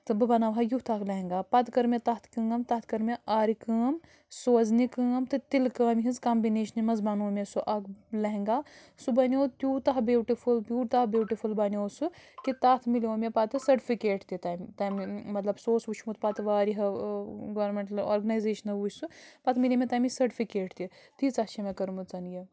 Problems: background sounds at intervals